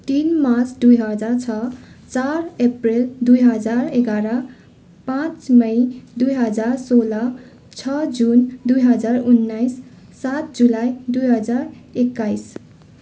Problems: background sounds at intervals